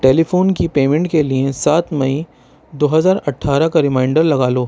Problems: constant background noise